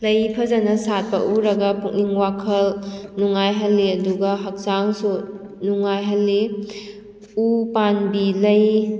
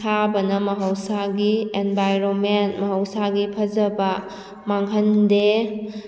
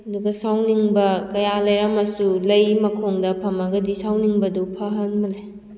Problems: none marked